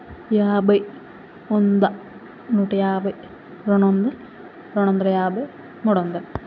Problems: none marked